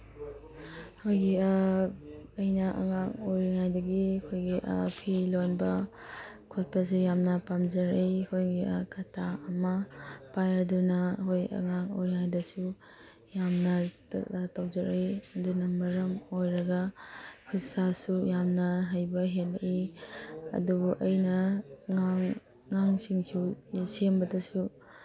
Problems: background sounds at intervals